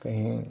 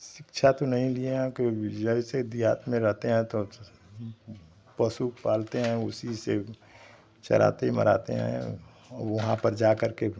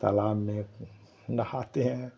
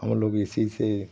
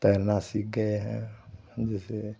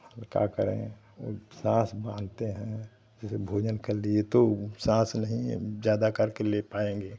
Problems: constant background noise, continuous background conversations